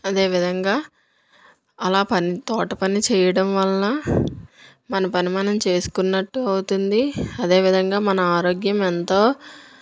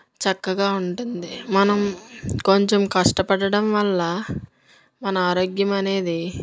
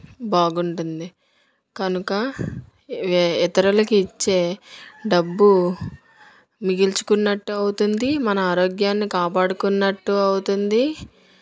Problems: background sounds at intervals